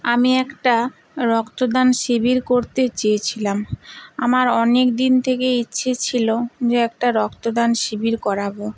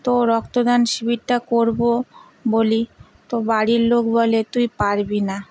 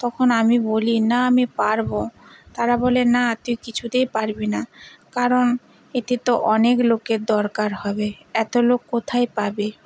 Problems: constant background noise